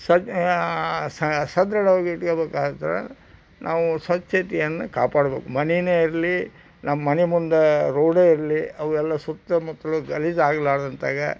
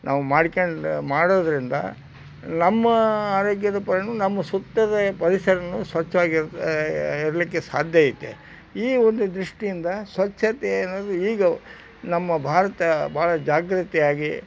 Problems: background sounds at intervals